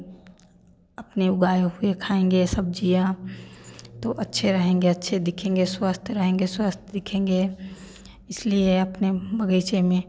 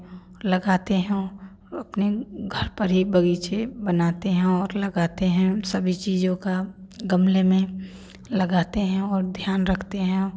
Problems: none marked